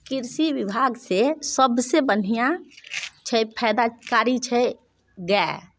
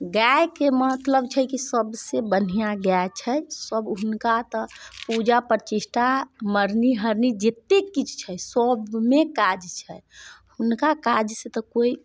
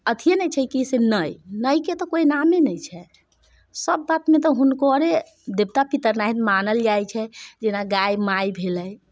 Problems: none marked